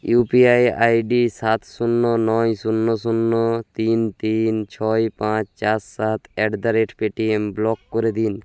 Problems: background sounds at intervals